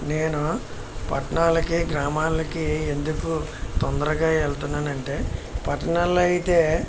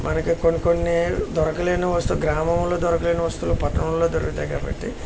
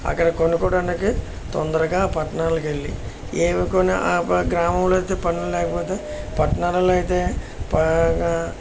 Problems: constant background noise